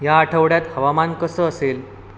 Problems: constant background noise